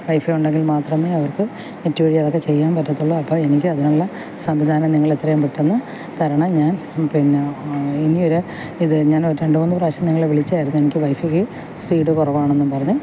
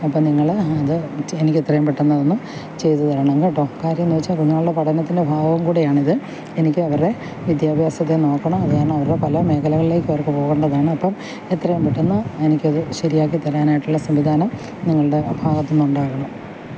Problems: constant background noise